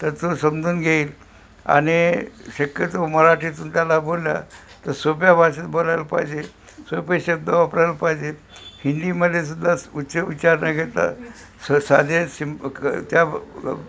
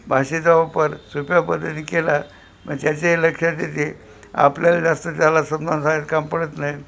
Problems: constant background noise, background conversations at intervals